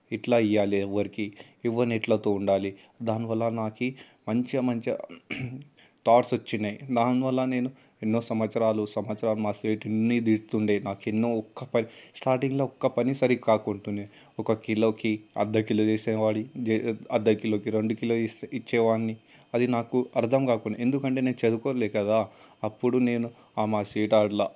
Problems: constant background noise